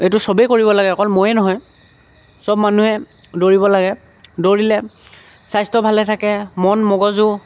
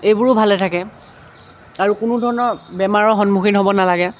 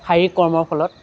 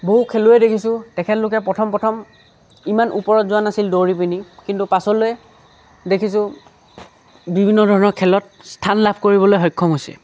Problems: none marked